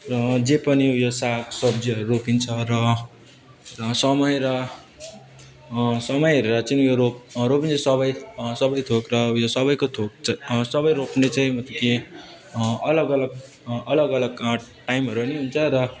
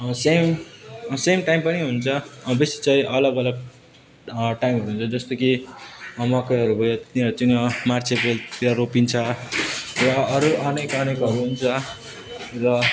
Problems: none marked